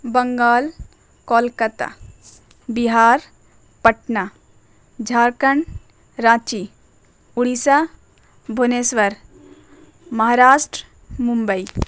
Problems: constant background noise